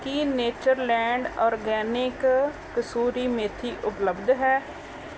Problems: background sounds at intervals